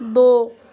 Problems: constant background noise